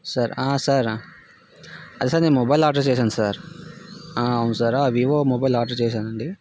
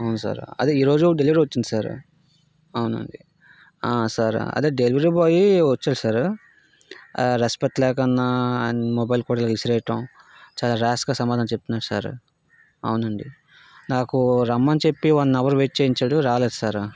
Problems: constant background noise